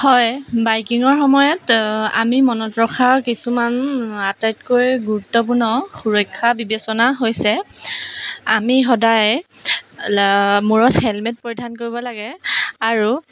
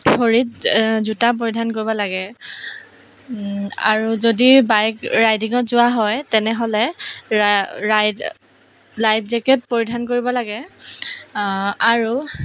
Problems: background sounds at intervals